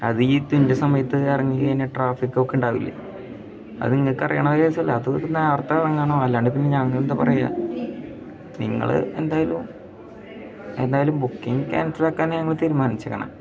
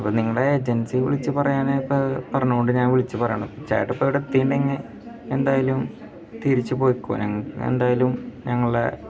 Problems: background sounds at intervals, background conversations at intervals